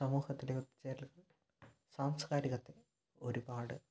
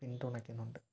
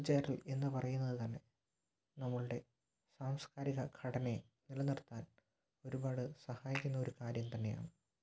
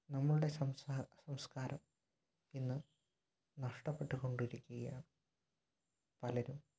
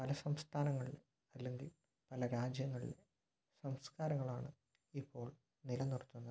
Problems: low volume